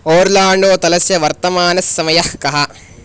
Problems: none marked